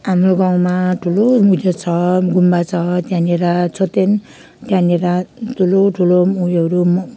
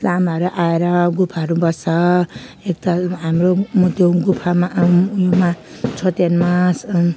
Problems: none marked